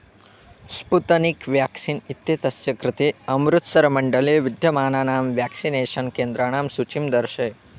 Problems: none marked